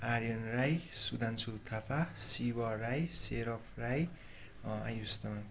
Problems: background sounds at intervals